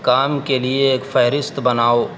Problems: constant background noise